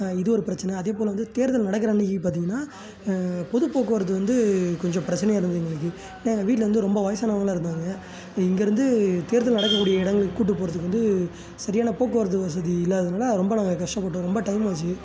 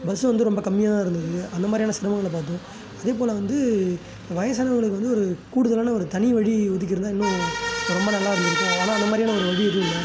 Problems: background sounds at intervals, continuous background conversations